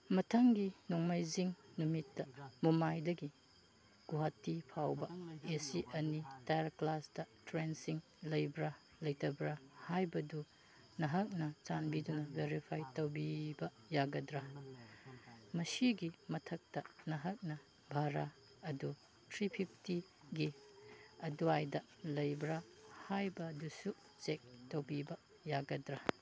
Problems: background conversations at intervals, low volume